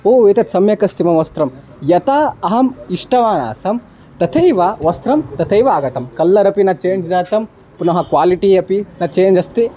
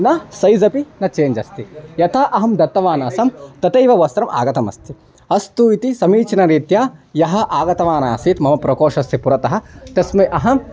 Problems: background sounds at intervals